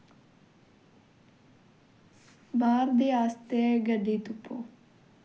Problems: background sounds at intervals